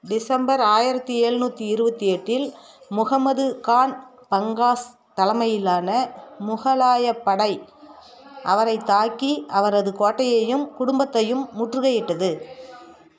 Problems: none marked